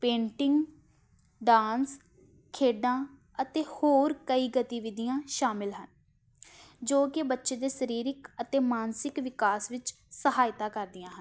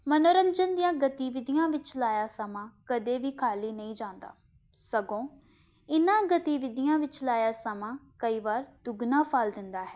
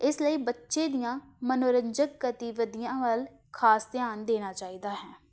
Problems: none marked